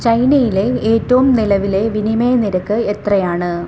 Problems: constant background noise